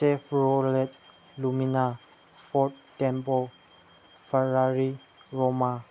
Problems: none marked